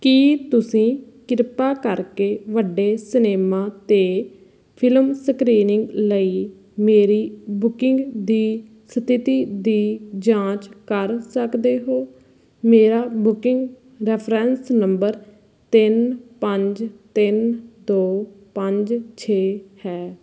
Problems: background sounds at intervals